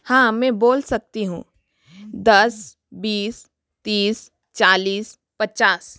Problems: none marked